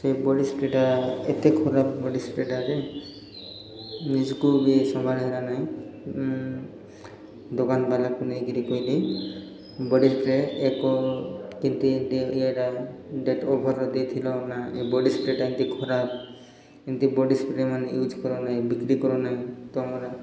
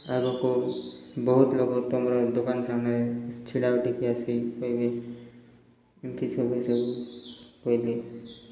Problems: none marked